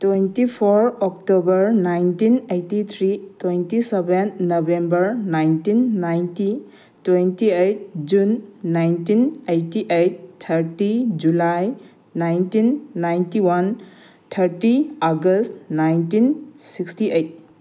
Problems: none marked